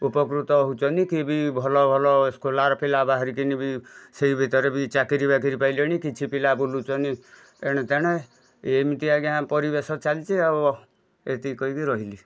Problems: background sounds at intervals, background conversations at intervals